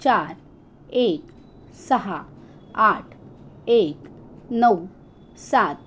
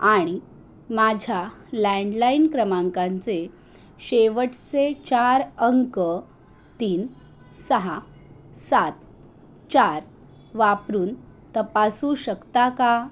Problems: constant background noise